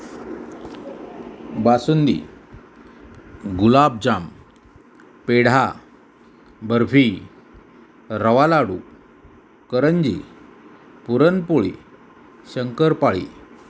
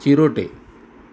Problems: none marked